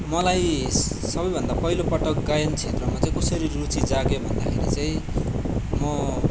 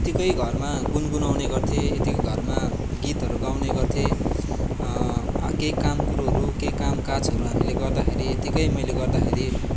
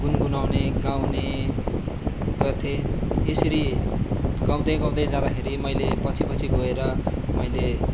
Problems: background sounds at intervals, background conversations at intervals